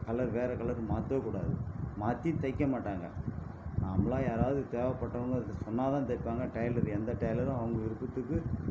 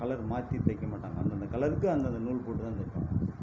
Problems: constant background noise, low volume